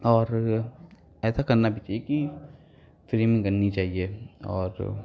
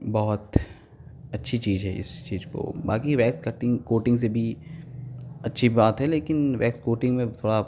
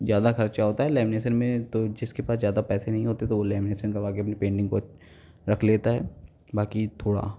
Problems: none marked